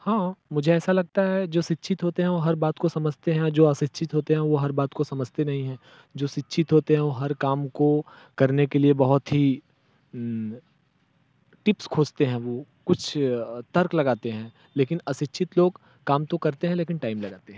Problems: background sounds at intervals